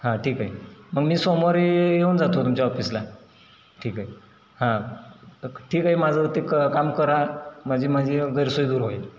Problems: none marked